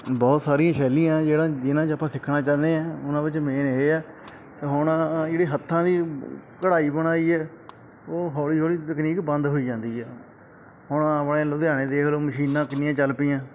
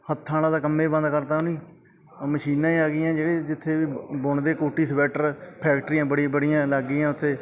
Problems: background sounds at intervals, background conversations at intervals